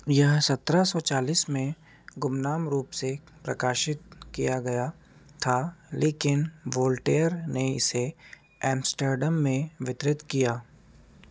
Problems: background sounds at intervals